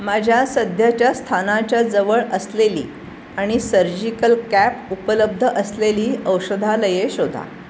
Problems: constant background noise